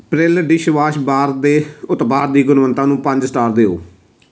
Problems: constant background noise, background conversations at intervals